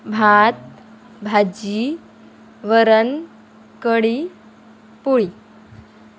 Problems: none marked